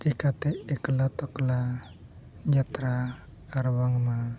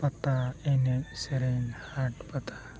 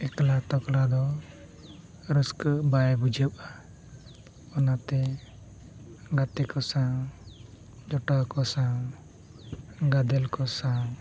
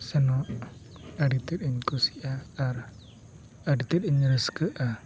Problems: constant background noise, background conversations at intervals